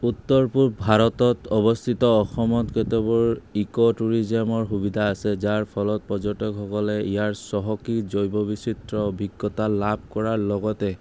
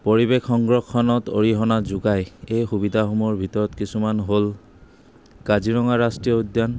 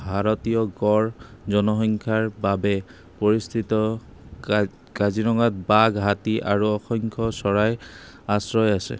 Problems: constant background noise